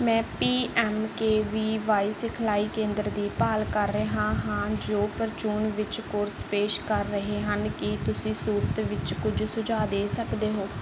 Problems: none marked